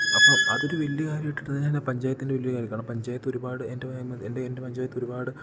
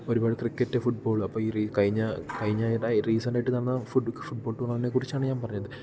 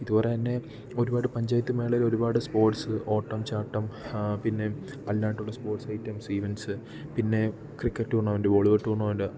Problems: none marked